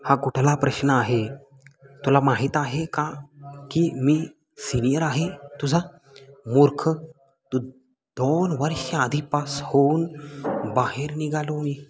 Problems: none marked